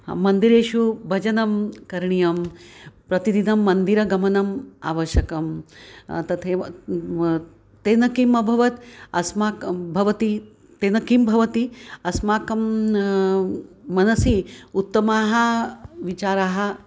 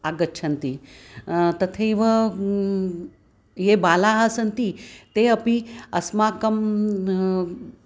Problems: background sounds at intervals